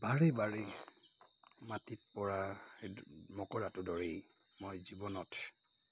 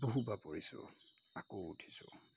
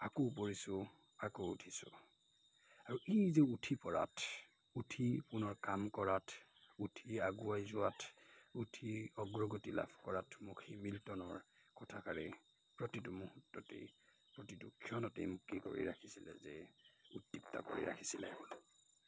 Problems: constant background noise, background conversations at intervals